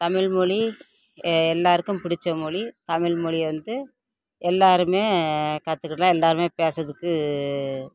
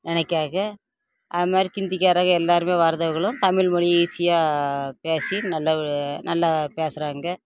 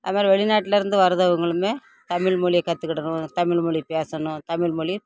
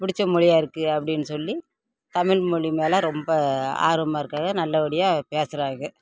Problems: constant background noise